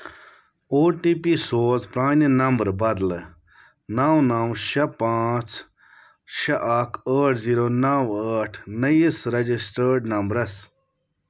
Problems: none marked